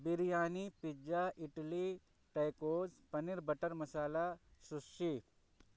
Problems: low volume